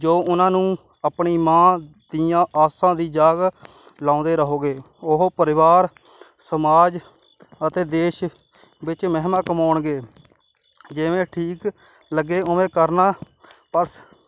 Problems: none marked